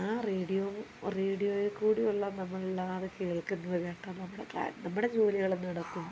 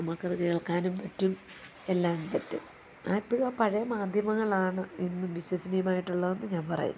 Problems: background sounds at intervals, low volume